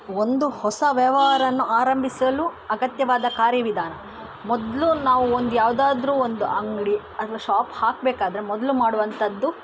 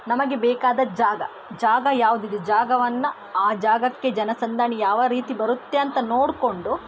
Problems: constant background noise